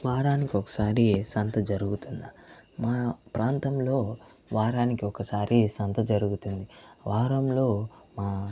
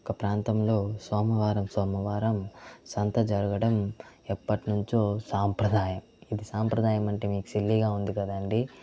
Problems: none marked